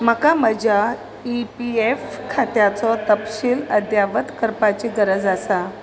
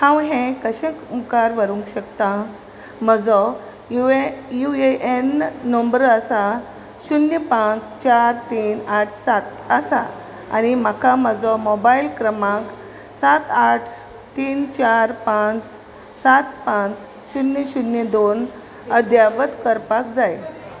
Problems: none marked